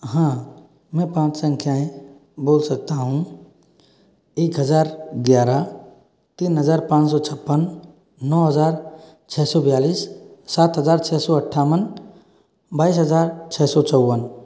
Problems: none marked